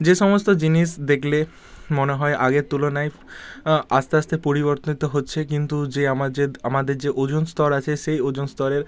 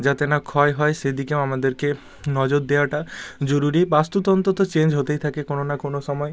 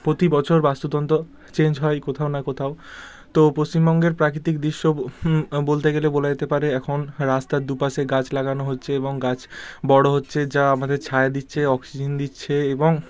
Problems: none marked